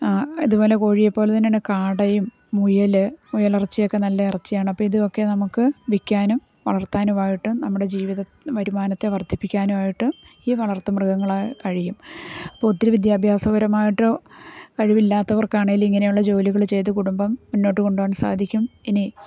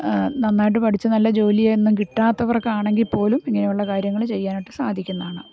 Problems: none marked